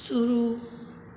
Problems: constant background noise, low volume